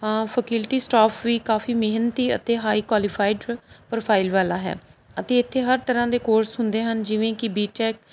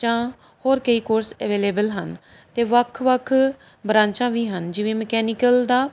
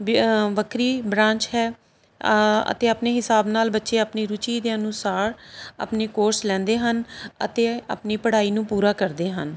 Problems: background sounds at intervals